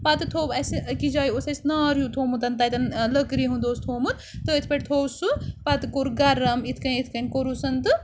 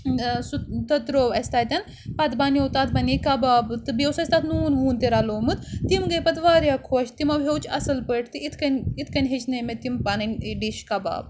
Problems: none marked